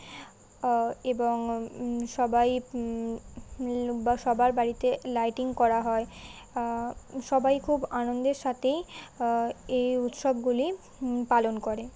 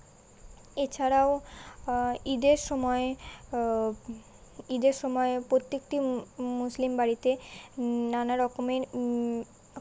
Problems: constant background noise